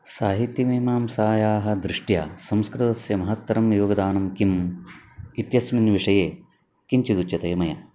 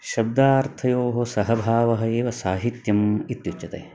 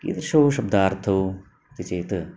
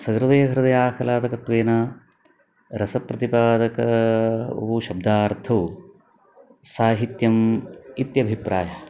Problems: none marked